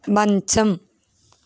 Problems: constant background noise